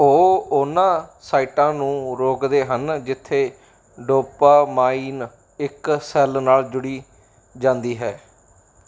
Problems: background sounds at intervals